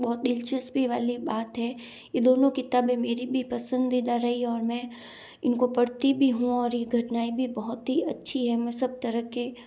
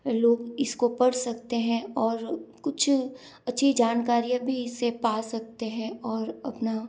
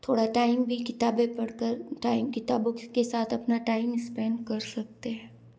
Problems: none marked